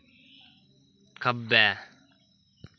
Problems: none marked